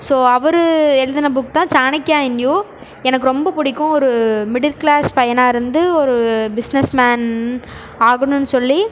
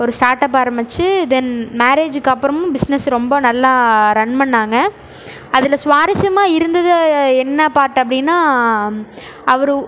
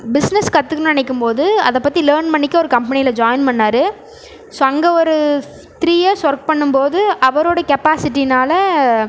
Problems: none marked